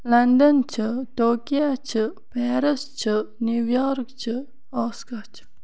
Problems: background sounds at intervals